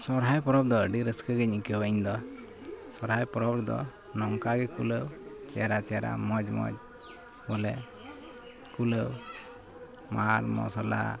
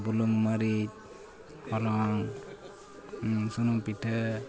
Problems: background sounds at intervals, continuous background conversations